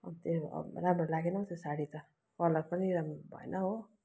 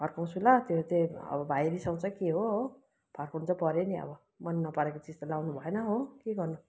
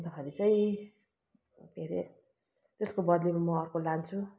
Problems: constant background noise